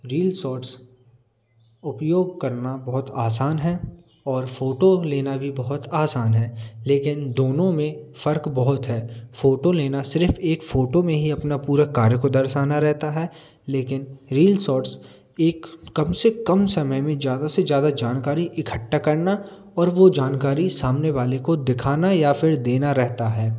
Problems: none marked